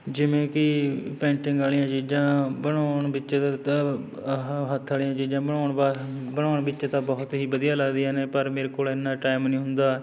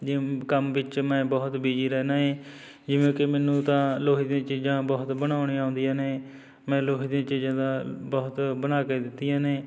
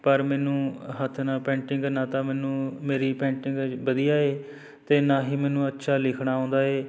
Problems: background sounds at intervals, background conversations at intervals